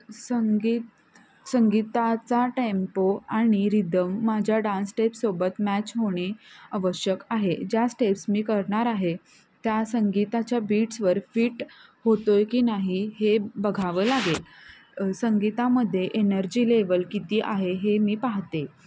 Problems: constant background noise, continuous background conversations